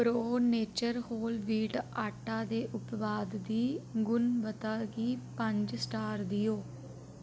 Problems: none marked